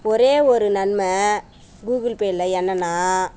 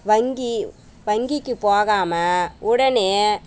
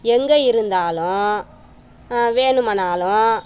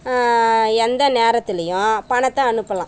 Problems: background sounds at intervals